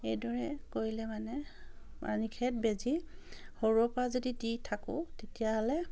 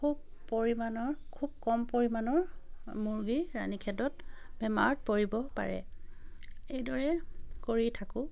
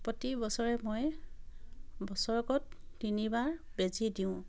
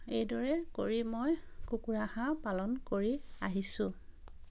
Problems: none marked